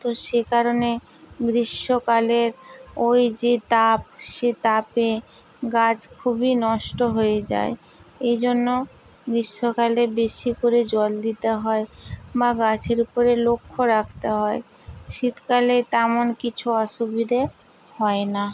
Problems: constant background noise